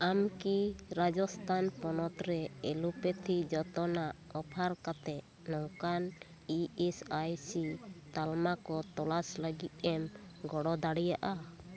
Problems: continuous background conversations